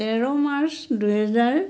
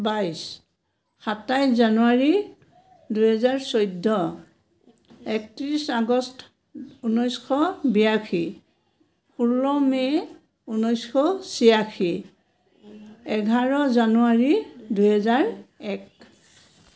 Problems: none marked